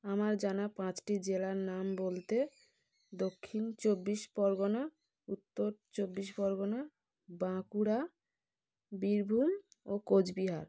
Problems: background sounds at intervals